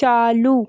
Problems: background sounds at intervals